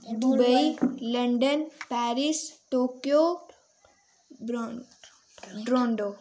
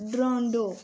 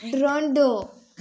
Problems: constant background noise, background conversations at intervals